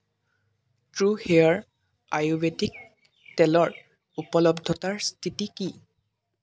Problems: constant background noise